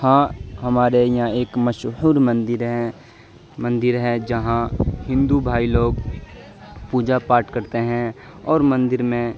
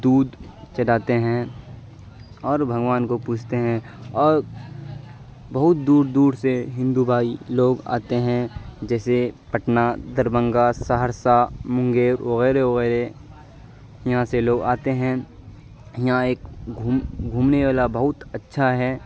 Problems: constant background noise